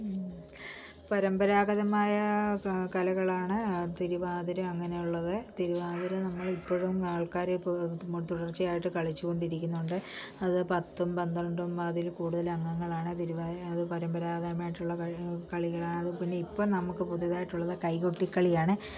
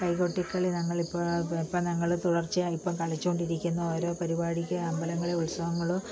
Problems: low volume